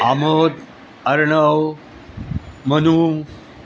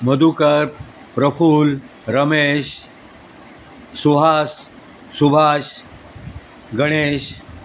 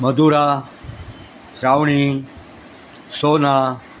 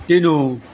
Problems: constant background noise